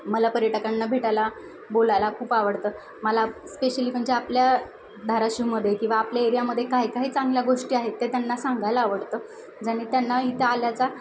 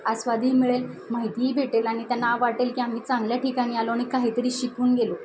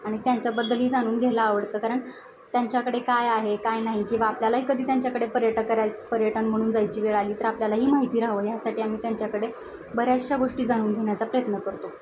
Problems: none marked